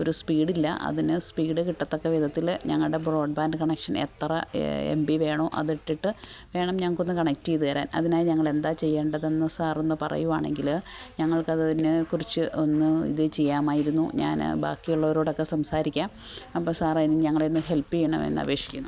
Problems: none marked